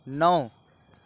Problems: none marked